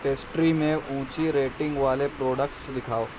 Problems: constant background noise